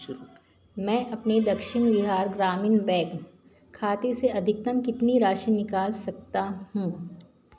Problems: constant background noise